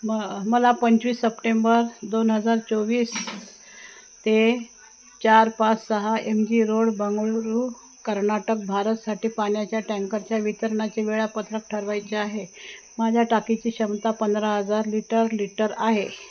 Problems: none marked